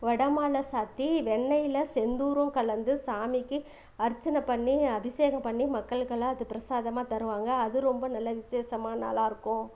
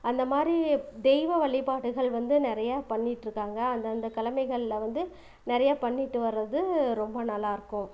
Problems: background sounds at intervals